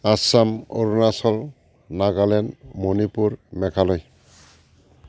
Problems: constant background noise